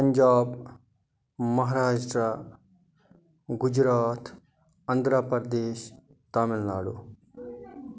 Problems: none marked